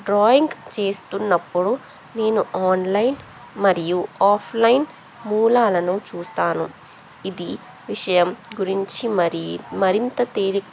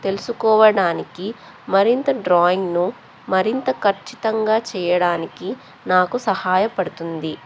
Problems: background conversations at intervals